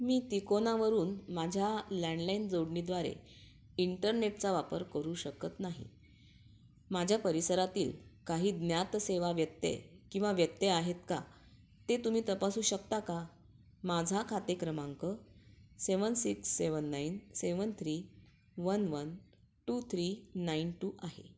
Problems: background sounds at intervals